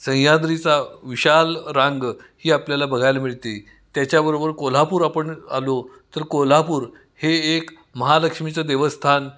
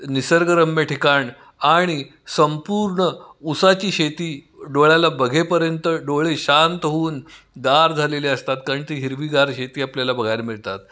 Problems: background sounds at intervals, background conversations at intervals, echo